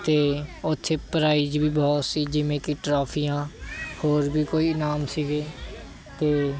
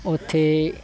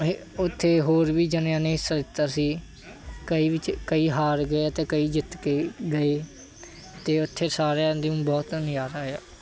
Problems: background sounds at intervals